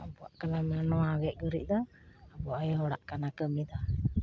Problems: constant background noise